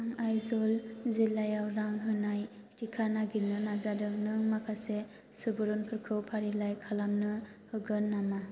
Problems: low volume